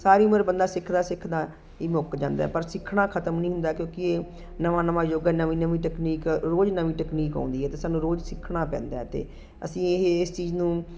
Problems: constant background noise